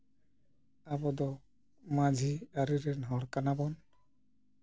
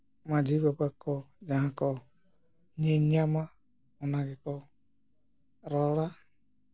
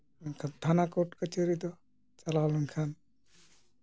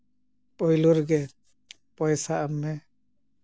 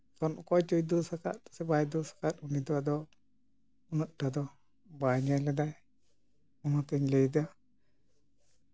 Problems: none marked